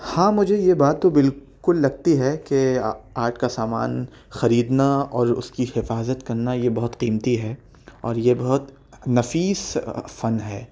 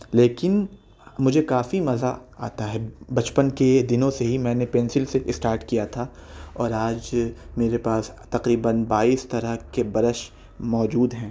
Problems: none marked